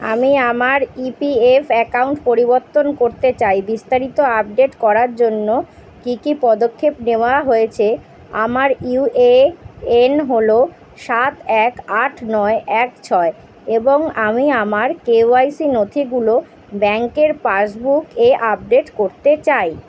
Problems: none marked